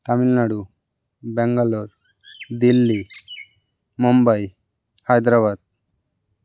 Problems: none marked